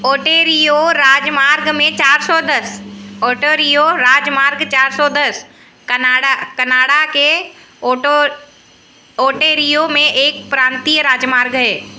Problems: none marked